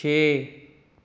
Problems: none marked